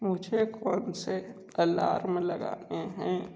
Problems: low volume